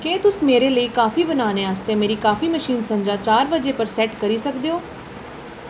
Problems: none marked